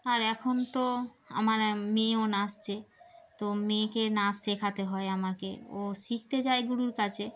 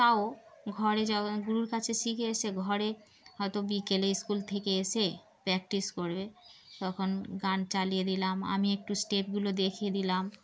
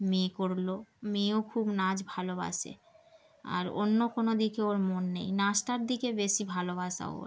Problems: background sounds at intervals